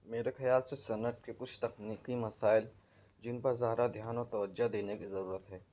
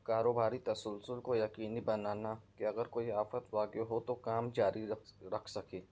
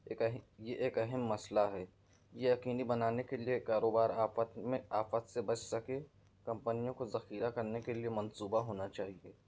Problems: none marked